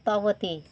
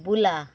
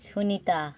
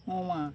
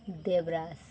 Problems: none marked